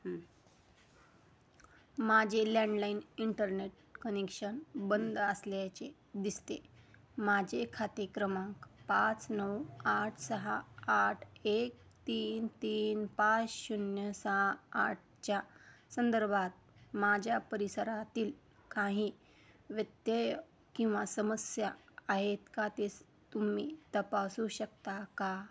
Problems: none marked